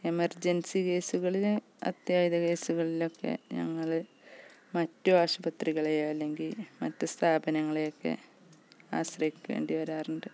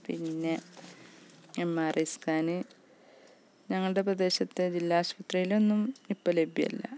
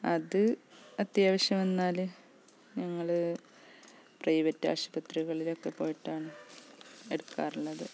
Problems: background sounds at intervals, low volume